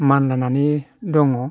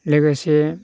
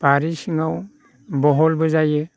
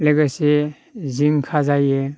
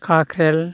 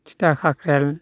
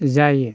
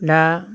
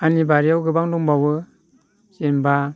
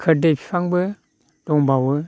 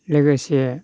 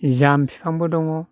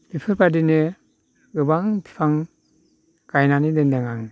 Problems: none marked